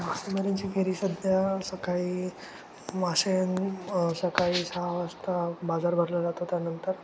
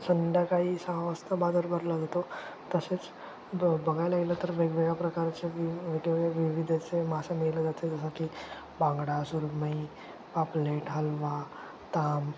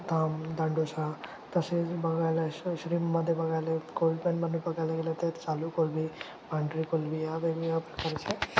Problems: none marked